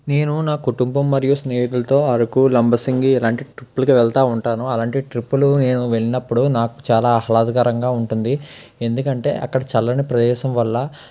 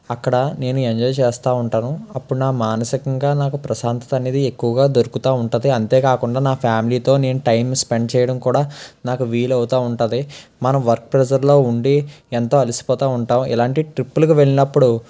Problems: none marked